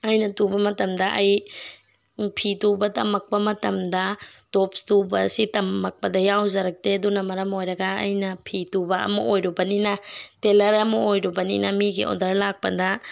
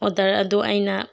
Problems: background sounds at intervals